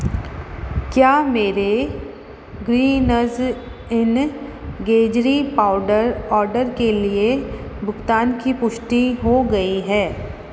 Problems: constant background noise